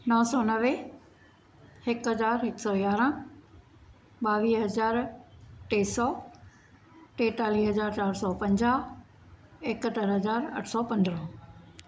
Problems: constant background noise